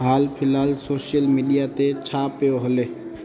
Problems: constant background noise